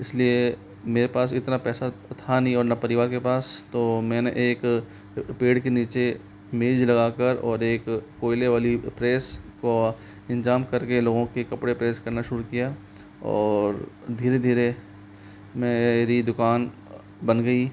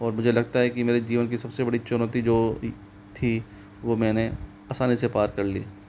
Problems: constant background noise